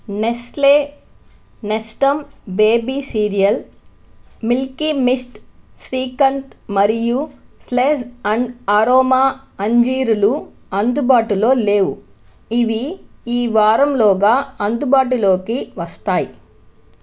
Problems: constant background noise